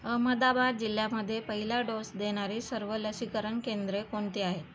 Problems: constant background noise